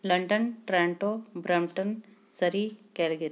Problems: background sounds at intervals